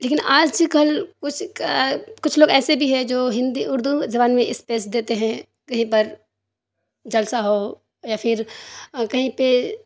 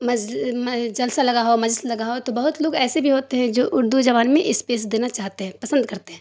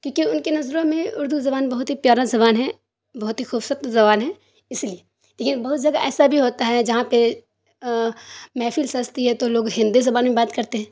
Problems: none marked